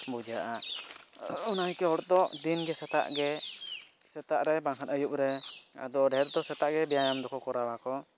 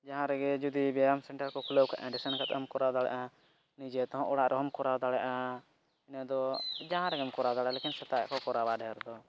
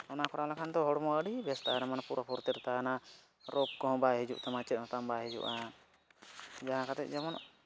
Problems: background sounds at intervals